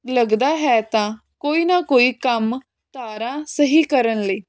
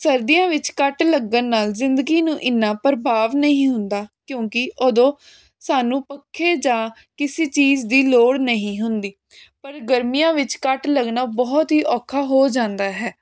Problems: constant background noise